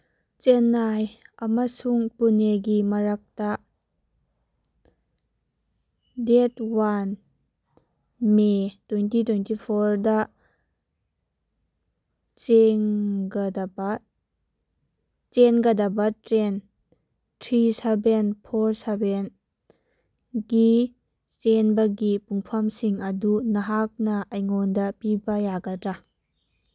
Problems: background sounds at intervals